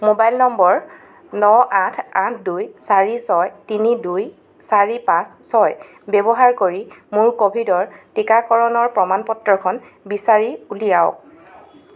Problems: none marked